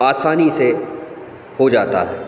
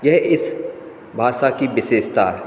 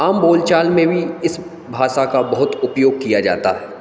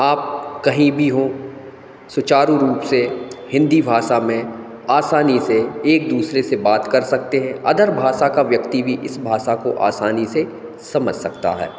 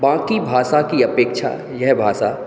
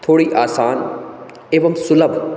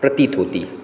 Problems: background sounds at intervals